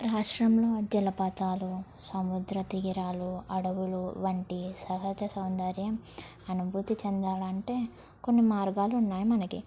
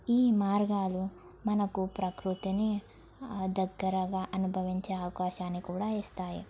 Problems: low volume